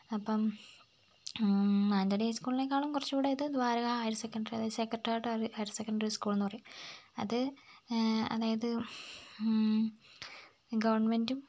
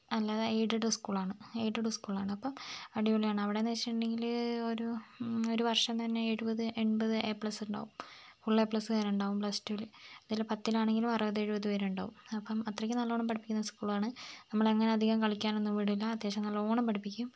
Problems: none marked